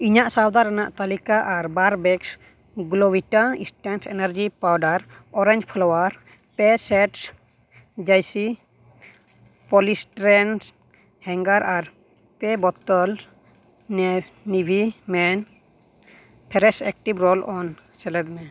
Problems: background sounds at intervals